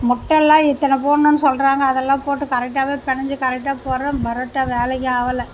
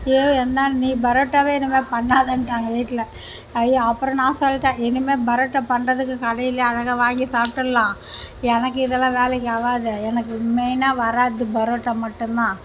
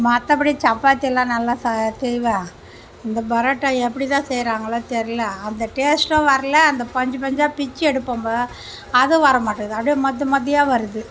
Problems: none marked